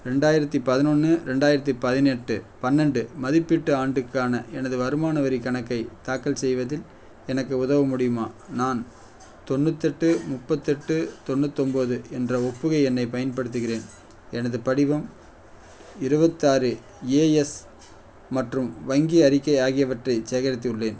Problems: none marked